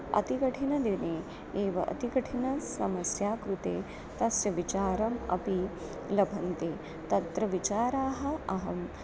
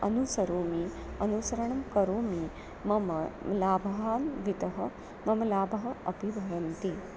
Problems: none marked